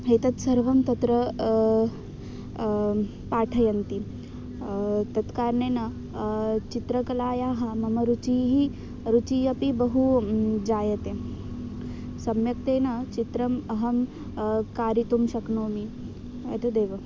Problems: constant background noise